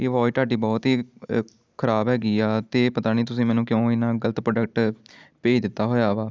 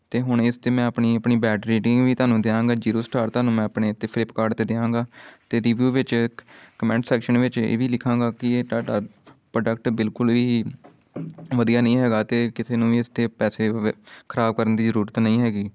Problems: constant background noise